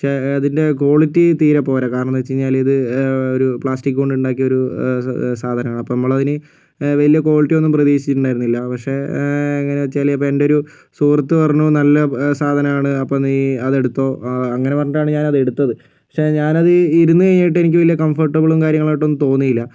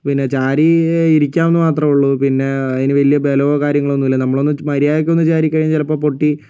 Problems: none marked